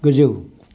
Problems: constant background noise